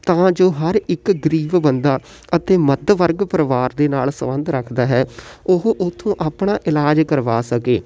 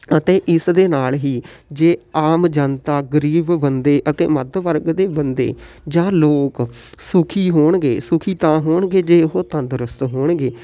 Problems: none marked